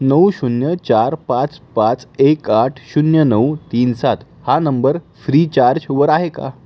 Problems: background sounds at intervals